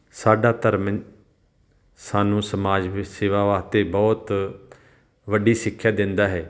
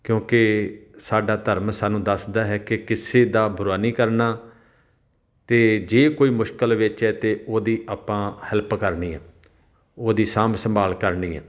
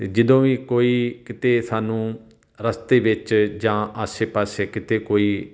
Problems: background sounds at intervals